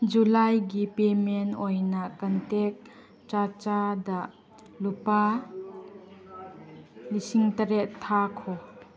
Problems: background conversations at intervals